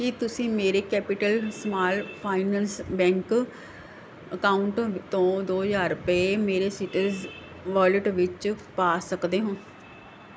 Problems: none marked